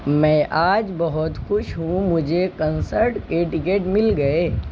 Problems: constant background noise